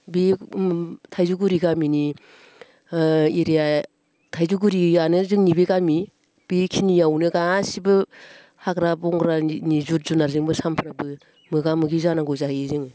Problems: constant background noise